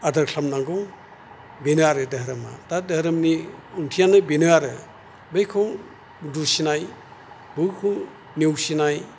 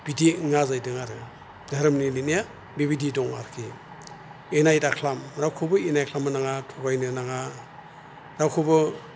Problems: none marked